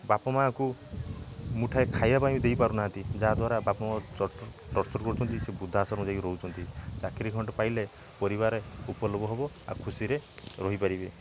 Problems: background sounds at intervals, background conversations at intervals